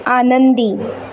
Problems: none marked